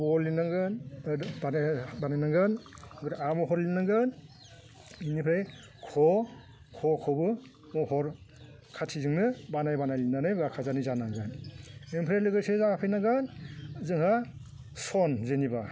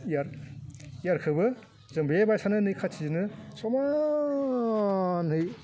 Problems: constant background noise